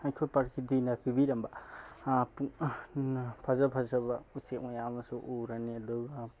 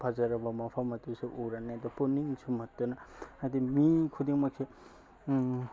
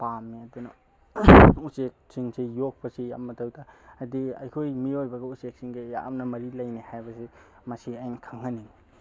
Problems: background sounds at intervals